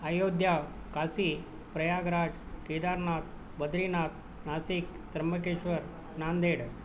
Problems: none marked